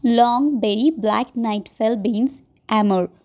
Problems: background sounds at intervals